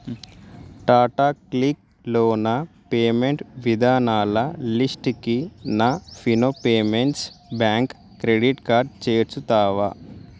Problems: background sounds at intervals